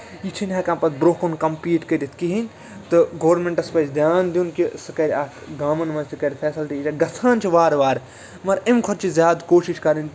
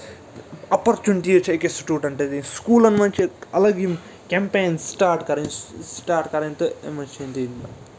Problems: constant background noise, continuous background conversations